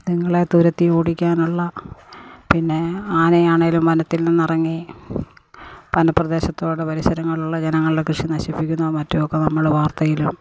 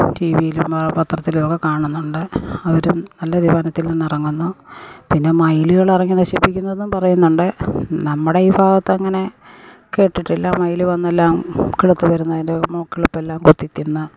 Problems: background sounds at intervals